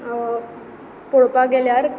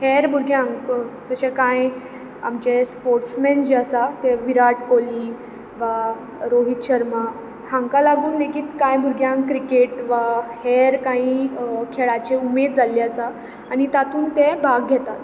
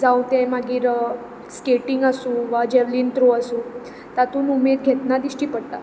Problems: constant background noise